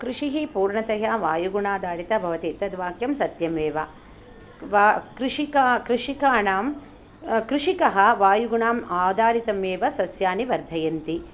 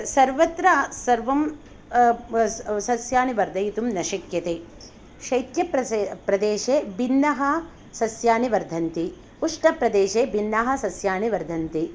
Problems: background sounds at intervals